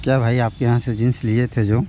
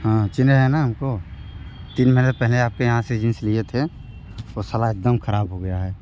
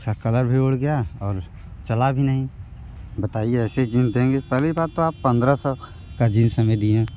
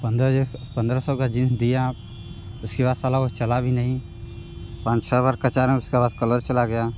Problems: background sounds at intervals